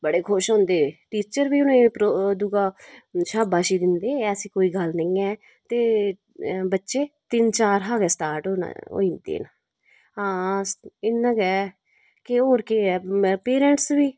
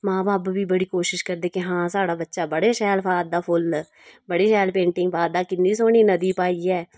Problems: constant background noise